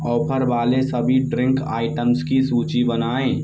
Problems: none marked